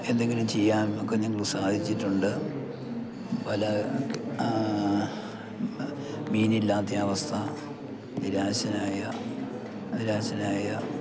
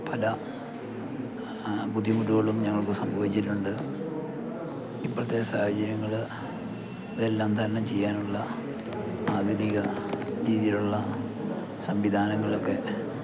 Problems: constant background noise, low volume